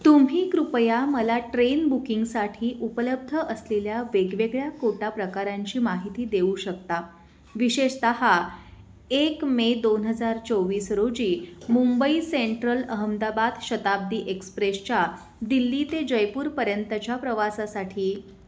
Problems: background sounds at intervals